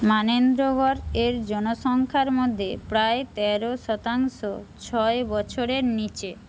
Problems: constant background noise